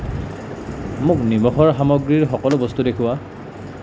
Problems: constant background noise